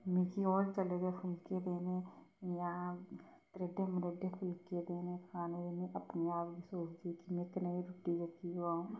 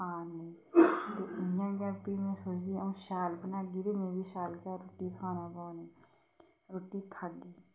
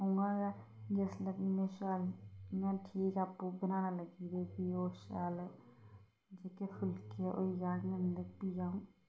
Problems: low volume